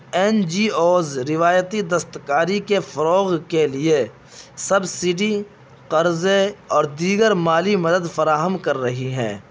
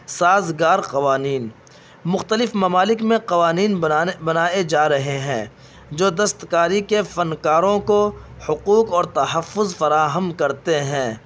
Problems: constant background noise